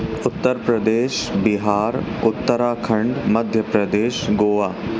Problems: constant background noise